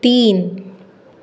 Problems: constant background noise